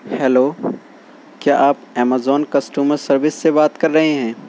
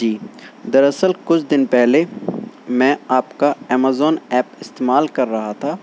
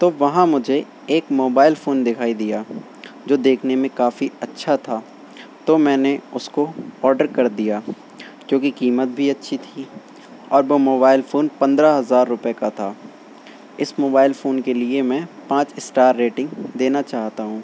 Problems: constant background noise